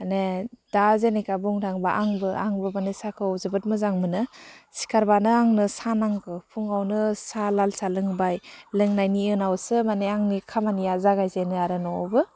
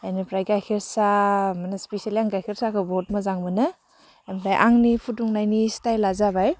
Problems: none marked